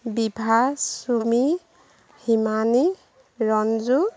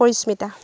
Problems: none marked